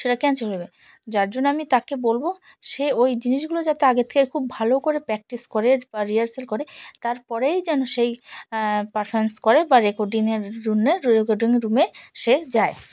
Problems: background sounds at intervals